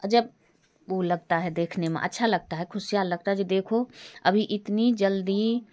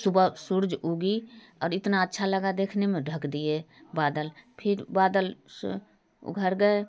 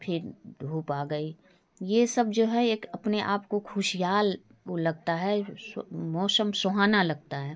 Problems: background sounds at intervals